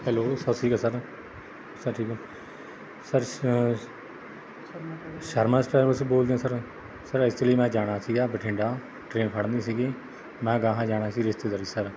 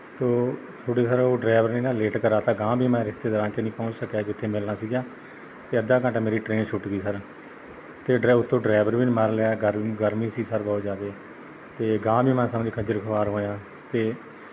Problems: background sounds at intervals